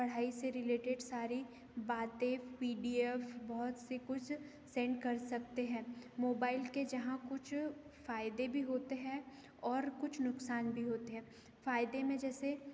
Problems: constant background noise